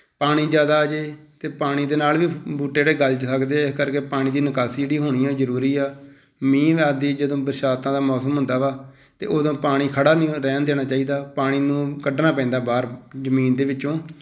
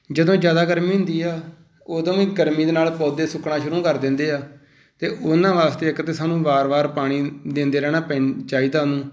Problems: none marked